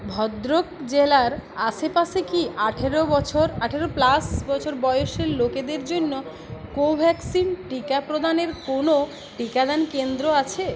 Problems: none marked